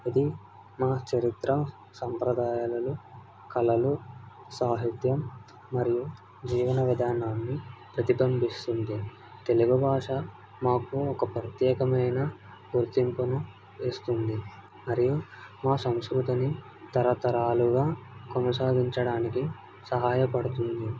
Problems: none marked